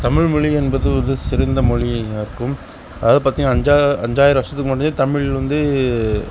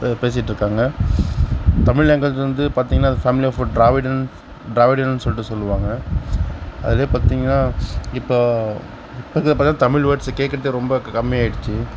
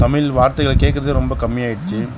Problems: constant background noise